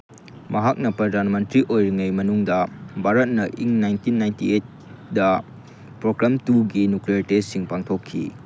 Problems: constant background noise